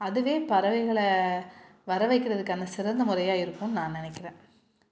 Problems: none marked